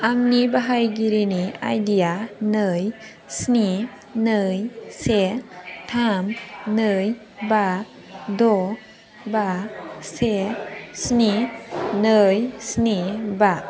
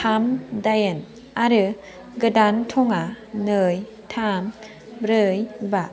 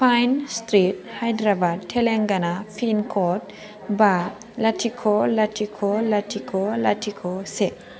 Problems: constant background noise